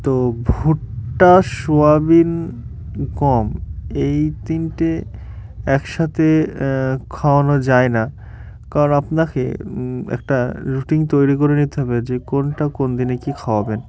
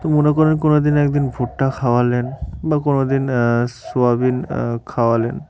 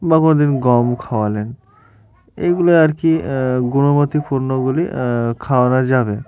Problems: none marked